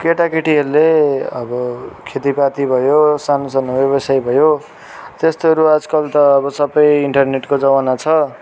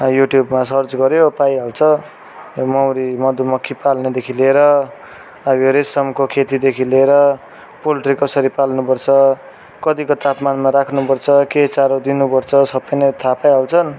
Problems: constant background noise, continuous background conversations